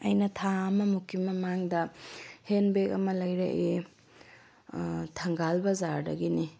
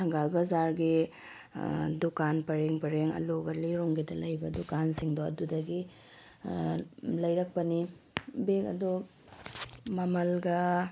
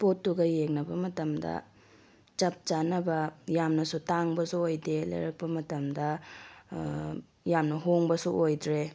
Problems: none marked